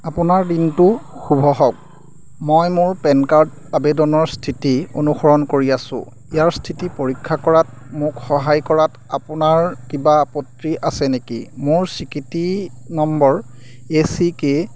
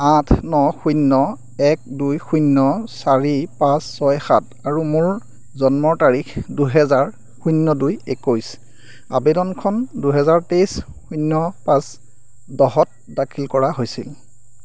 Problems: constant background noise